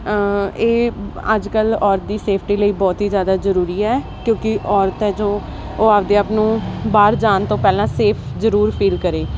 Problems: constant background noise